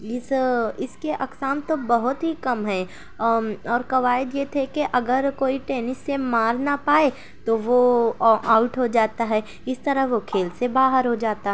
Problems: none marked